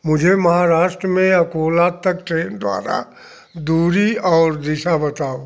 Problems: background sounds at intervals